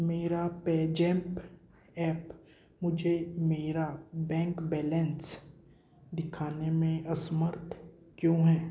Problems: echo